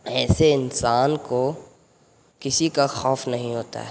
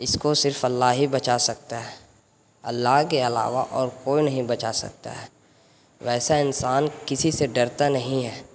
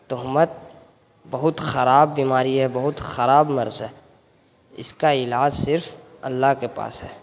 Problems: constant background noise